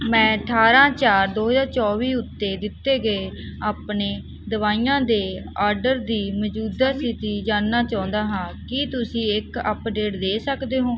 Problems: background sounds at intervals